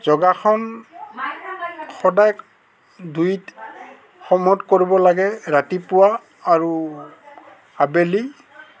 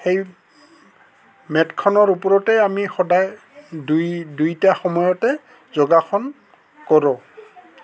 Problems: constant background noise, background conversations at intervals